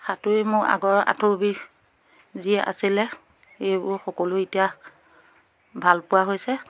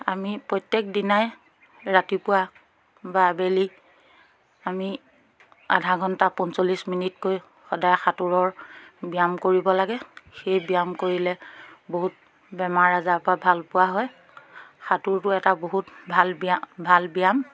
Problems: background sounds at intervals